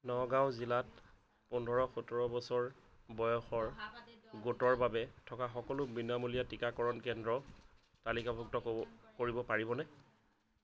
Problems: continuous background conversations